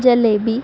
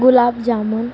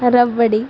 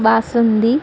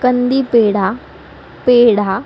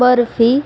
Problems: constant background noise, background conversations at intervals